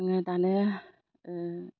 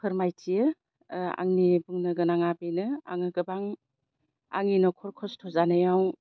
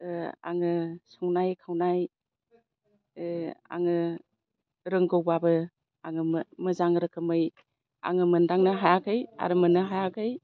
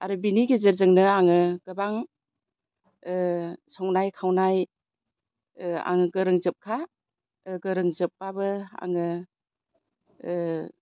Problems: constant background noise